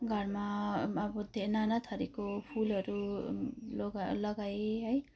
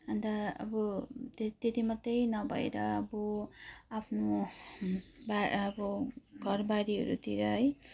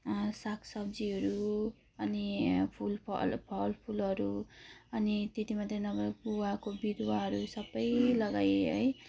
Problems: low volume